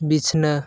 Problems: none marked